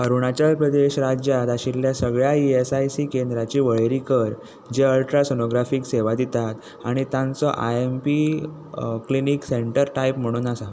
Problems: constant background noise